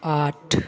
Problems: constant background noise